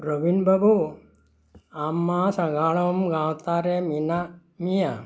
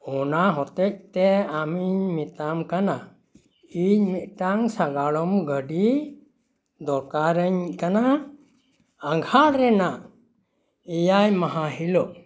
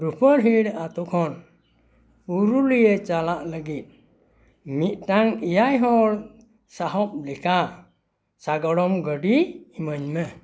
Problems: background sounds at intervals